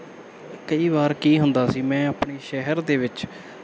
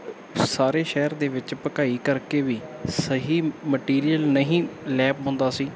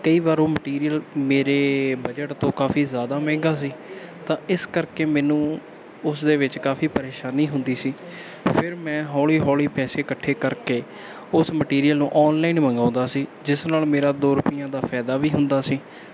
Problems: background sounds at intervals